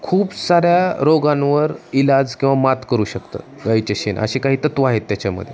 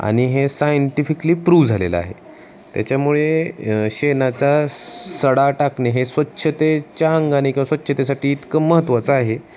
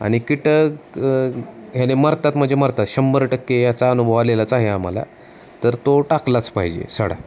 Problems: none marked